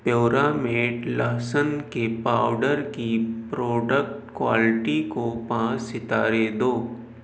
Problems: none marked